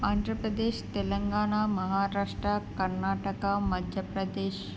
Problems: none marked